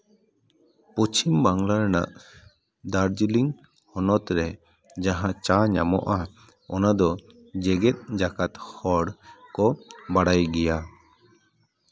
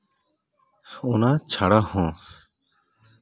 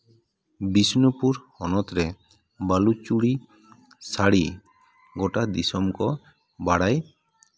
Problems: none marked